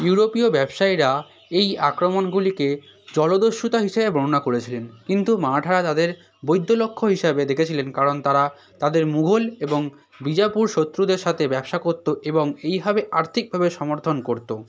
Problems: constant background noise